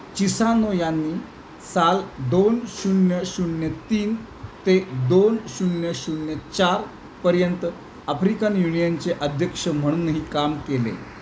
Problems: constant background noise